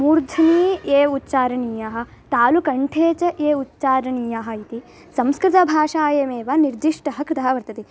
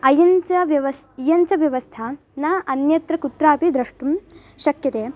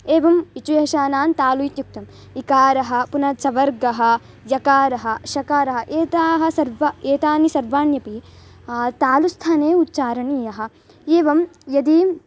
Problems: constant background noise